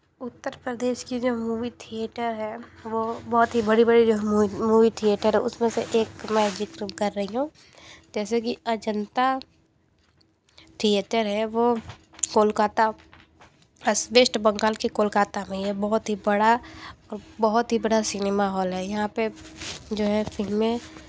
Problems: none marked